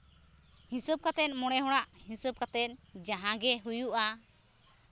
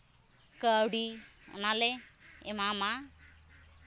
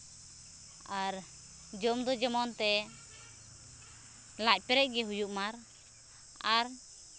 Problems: background sounds at intervals